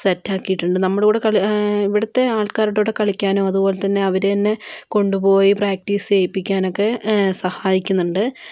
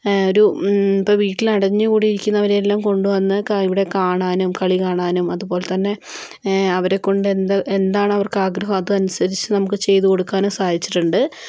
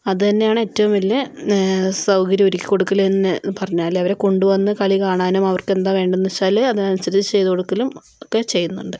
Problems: none marked